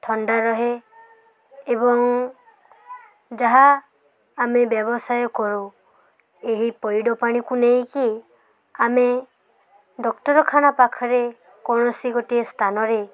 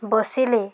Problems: constant background noise